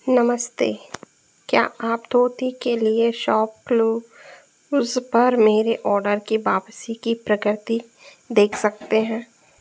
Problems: constant background noise